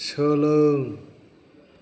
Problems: none marked